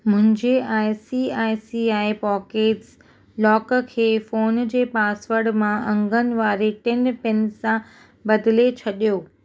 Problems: none marked